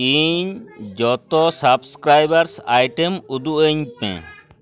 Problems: continuous background conversations